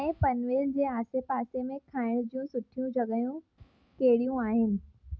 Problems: background sounds at intervals, low volume